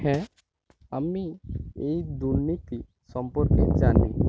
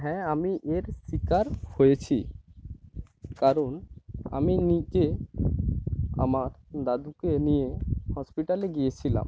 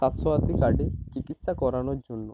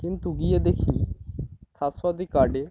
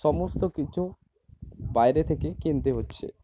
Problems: background sounds at intervals, low volume